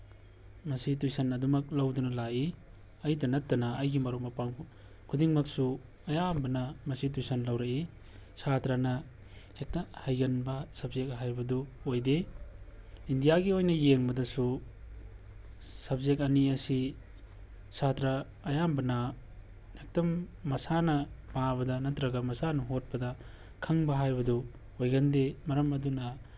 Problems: background sounds at intervals